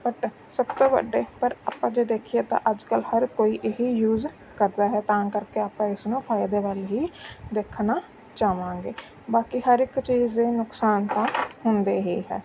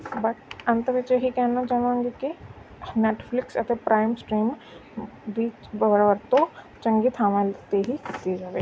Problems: background sounds at intervals